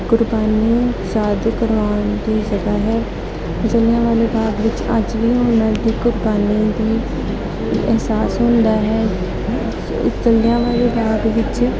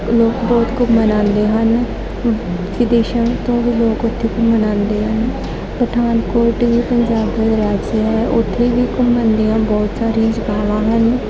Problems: constant background noise, continuous background conversations